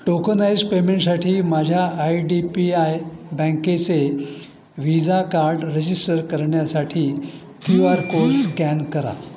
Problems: constant background noise, continuous background conversations